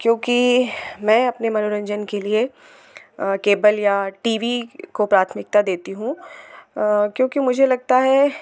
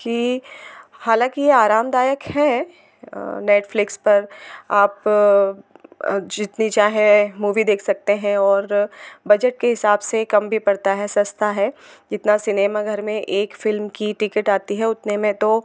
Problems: constant background noise